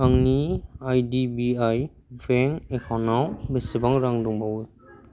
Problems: none marked